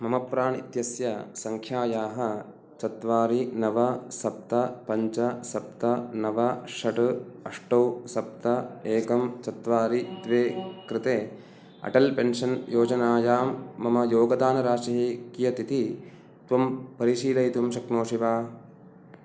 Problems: none marked